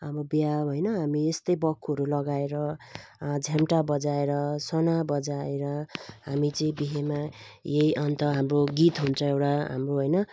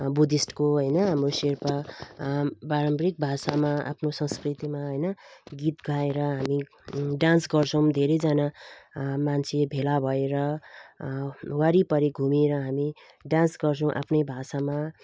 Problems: constant background noise